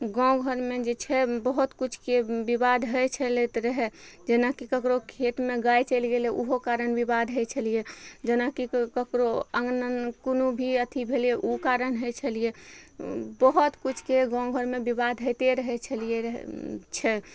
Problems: none marked